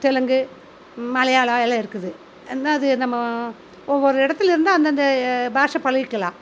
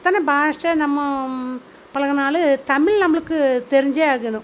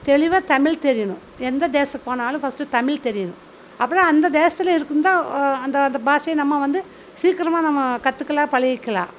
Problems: constant background noise